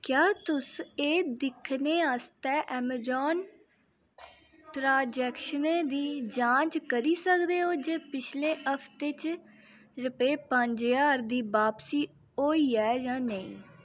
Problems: none marked